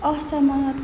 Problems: background sounds at intervals